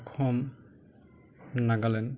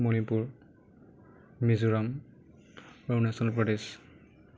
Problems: none marked